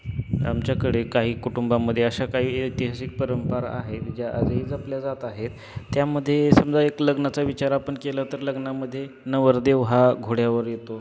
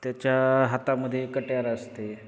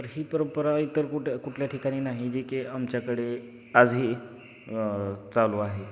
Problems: constant background noise